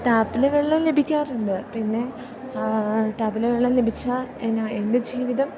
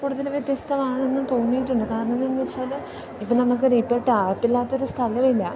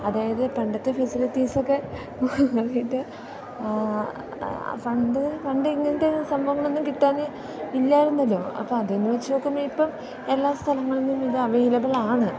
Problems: background sounds at intervals